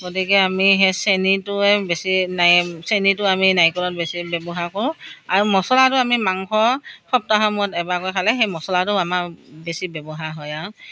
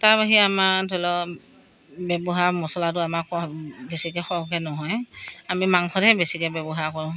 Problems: none marked